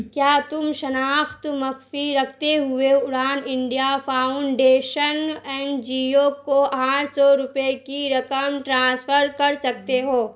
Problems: constant background noise